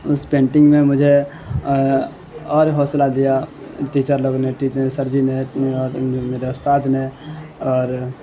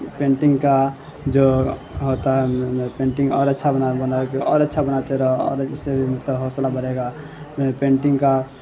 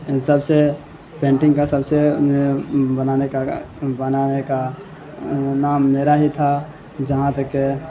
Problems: constant background noise